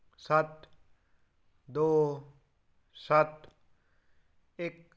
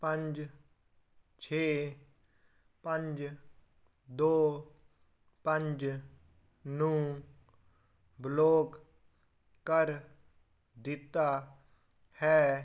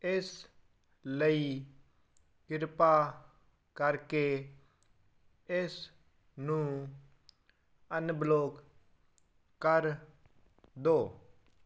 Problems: none marked